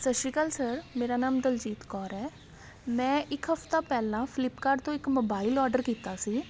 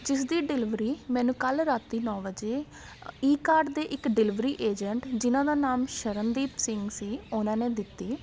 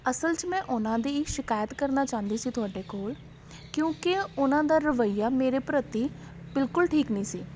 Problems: none marked